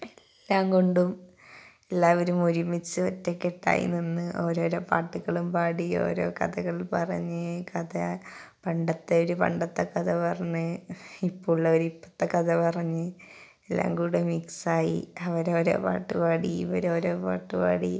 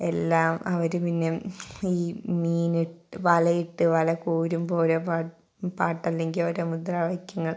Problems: background sounds at intervals